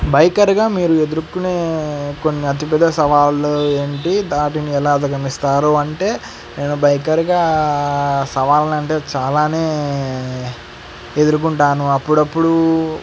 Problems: constant background noise